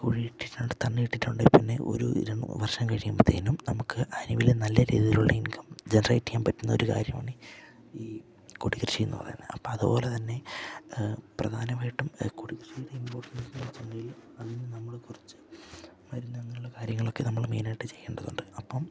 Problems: background sounds at intervals, low volume